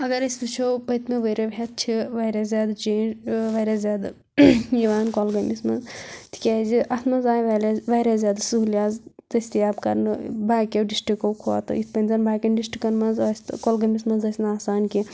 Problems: constant background noise